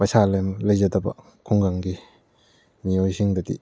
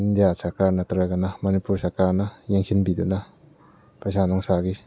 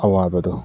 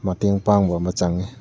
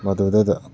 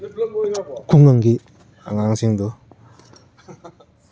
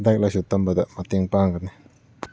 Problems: background sounds at intervals